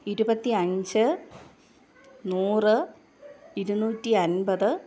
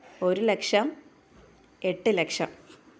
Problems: none marked